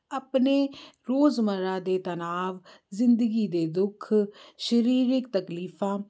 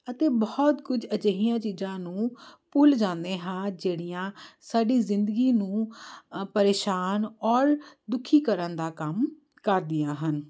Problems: constant background noise